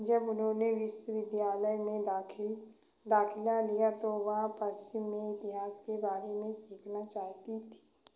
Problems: none marked